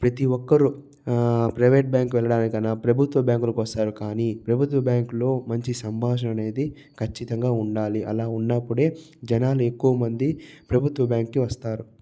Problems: low volume